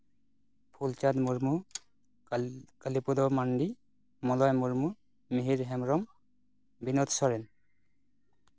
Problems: none marked